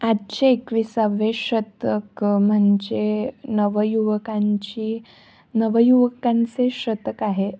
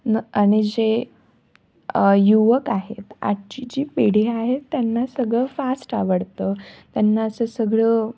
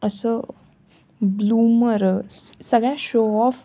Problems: none marked